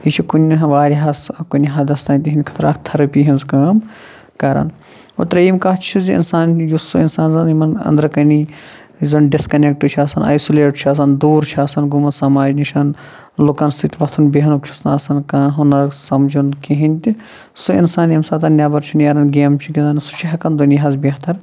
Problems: low volume